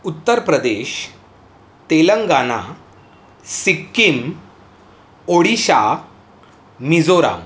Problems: constant background noise